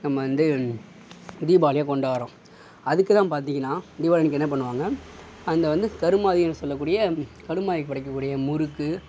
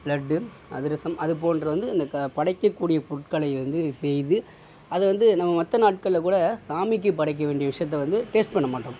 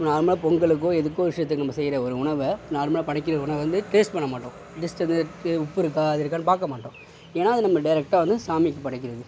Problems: none marked